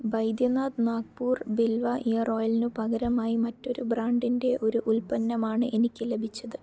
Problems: low volume